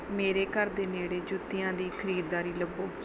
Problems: background sounds at intervals